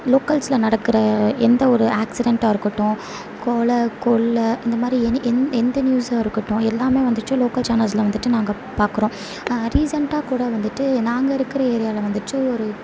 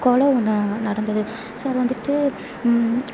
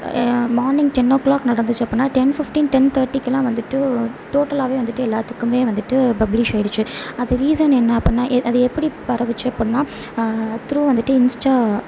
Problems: background sounds at intervals, low volume